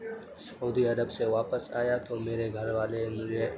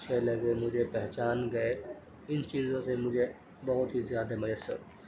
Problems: constant background noise, background conversations at intervals